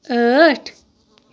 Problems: none marked